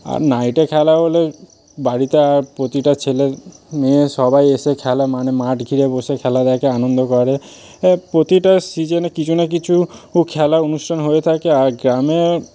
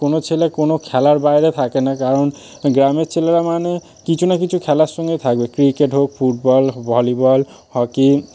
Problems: constant background noise